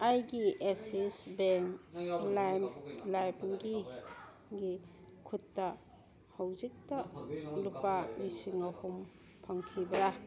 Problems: background conversations at intervals